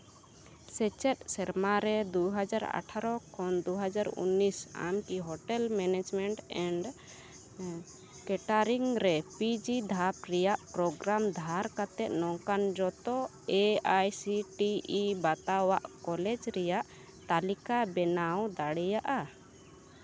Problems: none marked